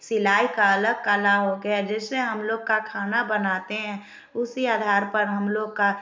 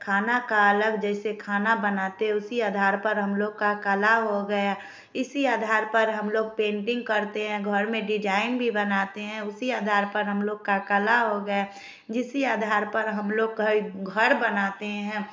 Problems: none marked